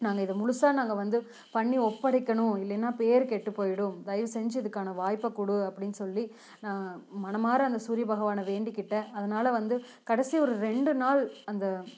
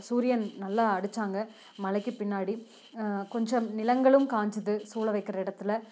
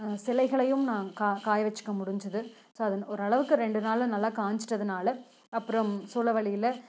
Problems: background sounds at intervals